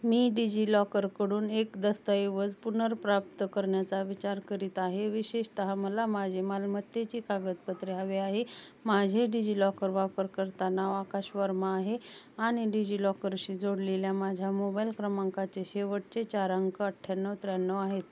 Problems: constant background noise